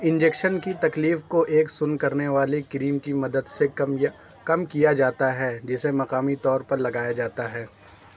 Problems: none marked